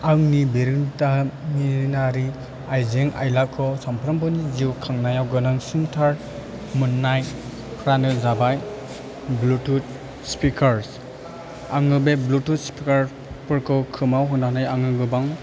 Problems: constant background noise